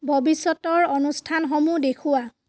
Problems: none marked